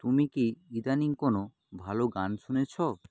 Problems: low volume